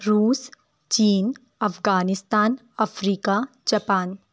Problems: none marked